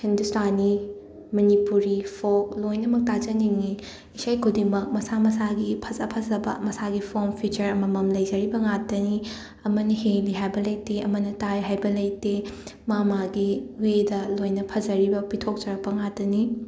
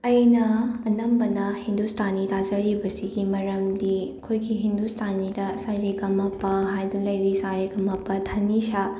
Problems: constant background noise